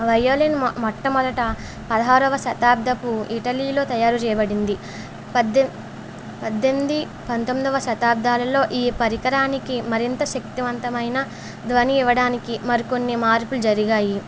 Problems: none marked